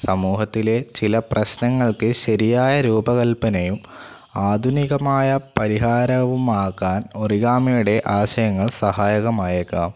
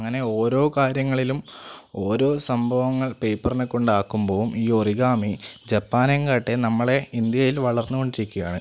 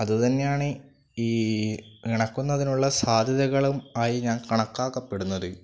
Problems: none marked